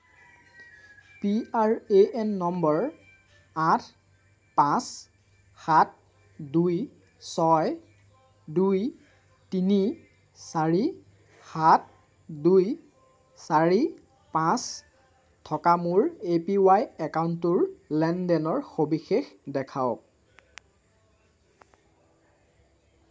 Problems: none marked